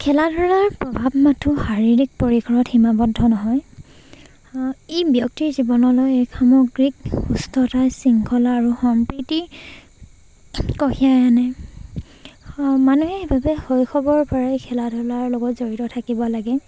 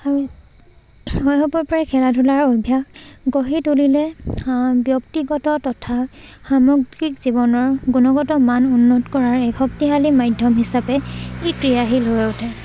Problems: constant background noise, background conversations at intervals